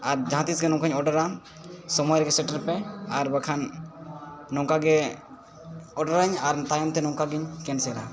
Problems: continuous background conversations